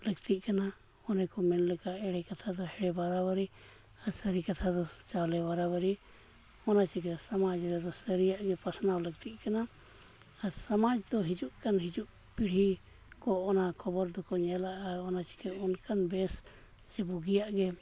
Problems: none marked